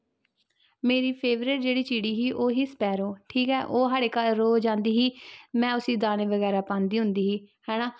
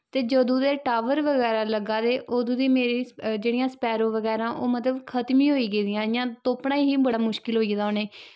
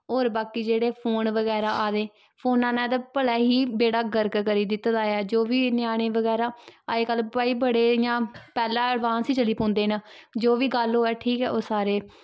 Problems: background sounds at intervals